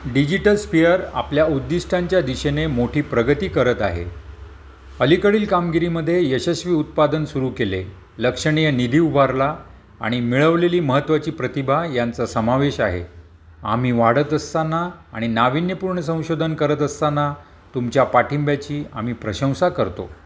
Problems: none marked